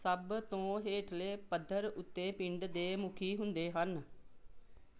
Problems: none marked